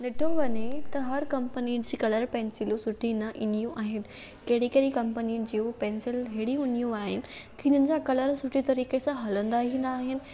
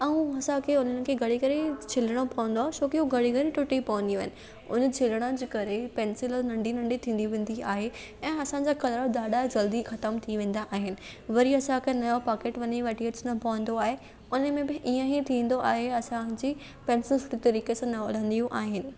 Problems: none marked